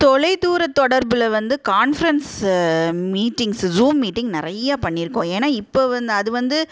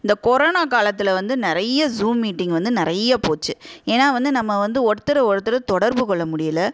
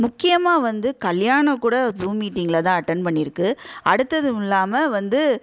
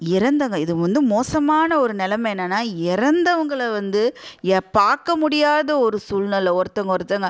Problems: none marked